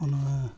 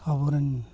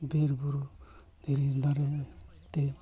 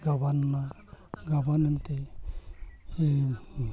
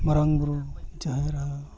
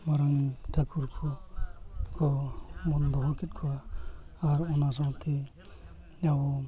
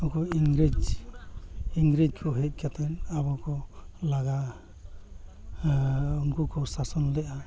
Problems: background sounds at intervals, continuous background conversations